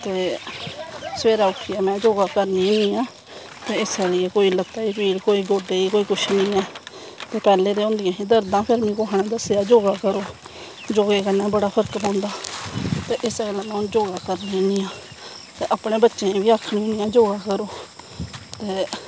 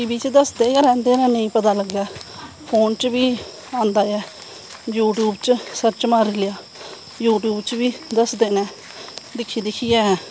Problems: constant background noise